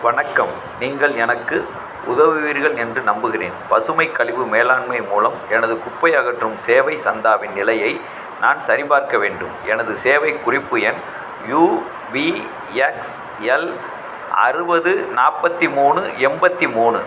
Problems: none marked